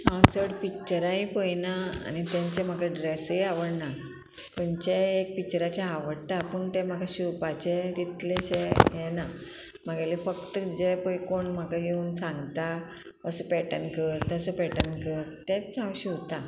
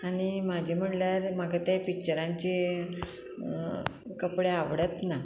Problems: constant background noise